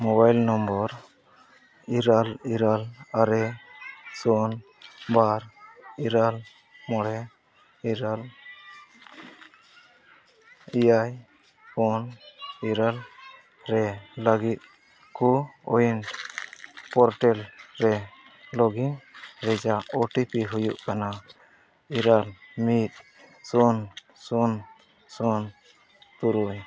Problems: constant background noise